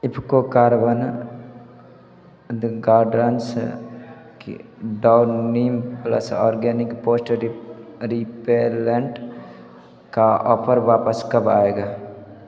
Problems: background sounds at intervals, background conversations at intervals